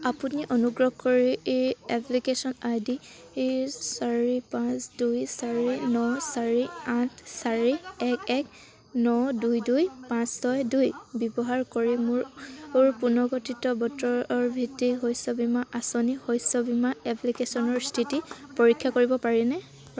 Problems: none marked